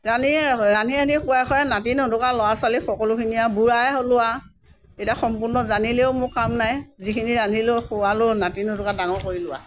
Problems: continuous background conversations